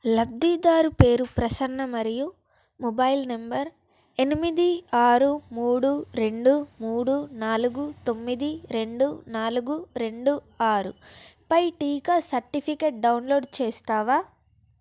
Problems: none marked